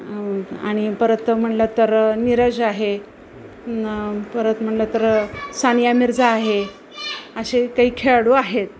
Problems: constant background noise, background conversations at intervals